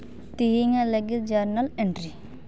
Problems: none marked